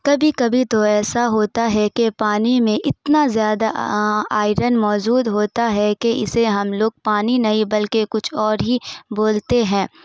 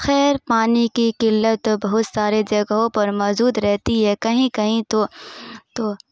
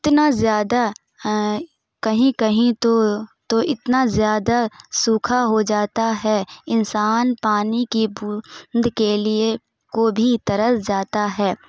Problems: none marked